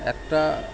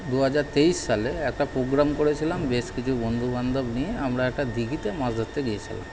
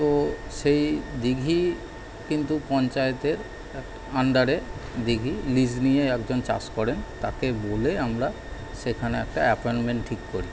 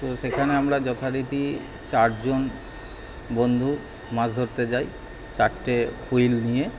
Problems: none marked